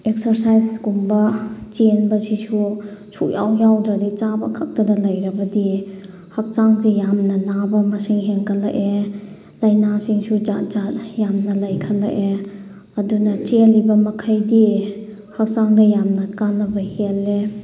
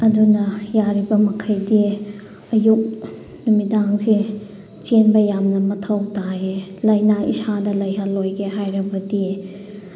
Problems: background sounds at intervals